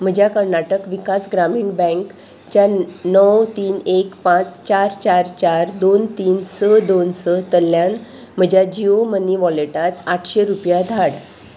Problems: constant background noise